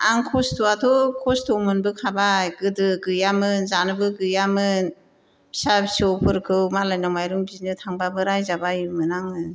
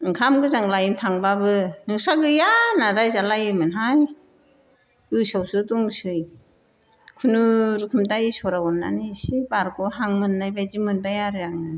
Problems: none marked